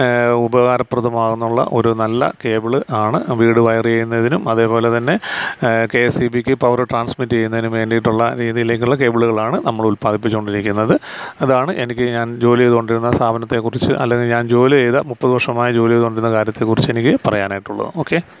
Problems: none marked